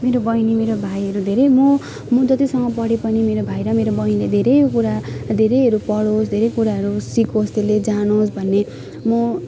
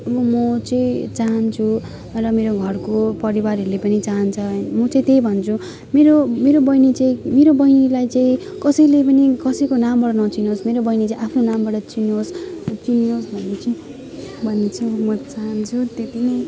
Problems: continuous background conversations